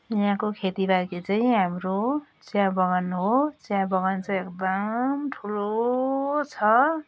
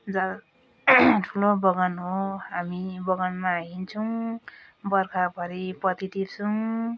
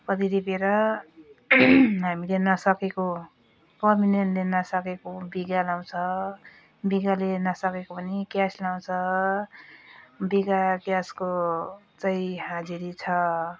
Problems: none marked